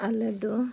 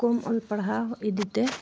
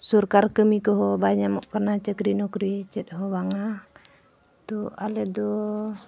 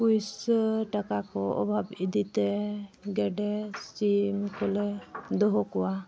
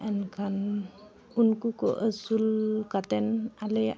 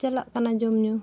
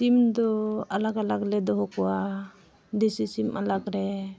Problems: background sounds at intervals